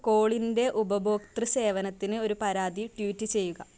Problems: none marked